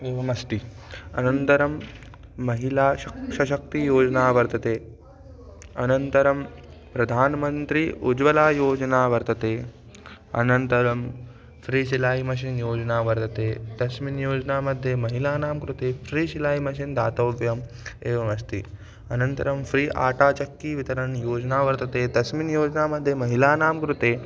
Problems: none marked